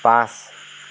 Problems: constant background noise